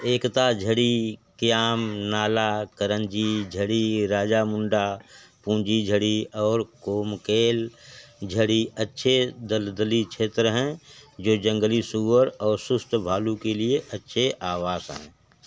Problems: constant background noise